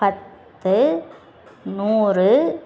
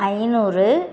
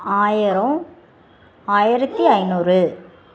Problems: constant background noise, background conversations at intervals